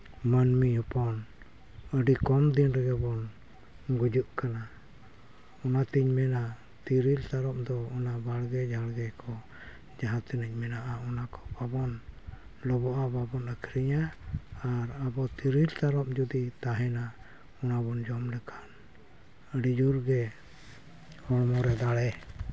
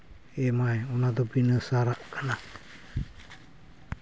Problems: none marked